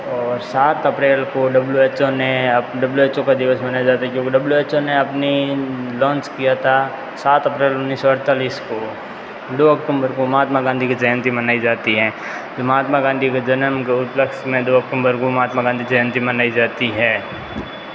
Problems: constant background noise